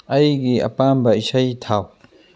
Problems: none marked